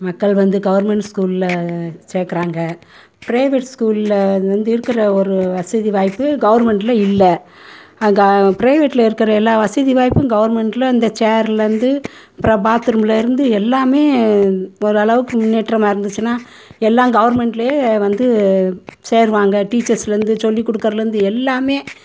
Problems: constant background noise